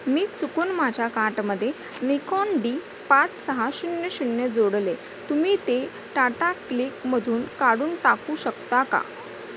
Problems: constant background noise